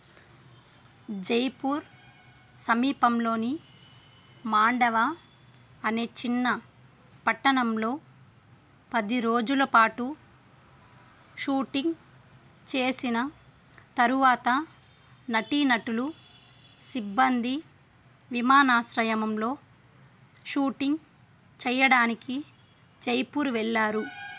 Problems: background sounds at intervals